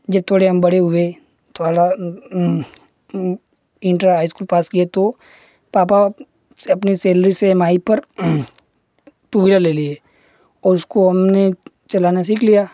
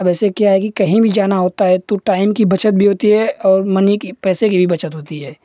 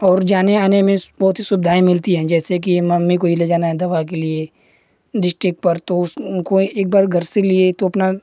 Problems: none marked